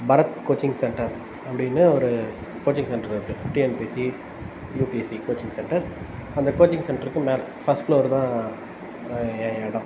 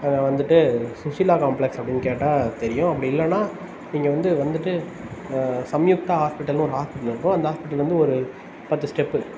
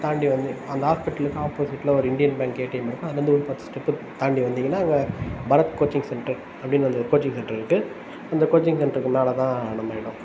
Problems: constant background noise